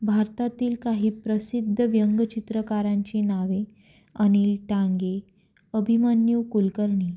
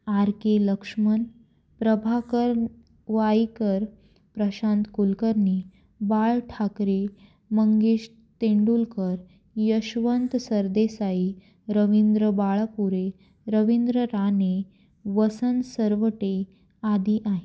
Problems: constant background noise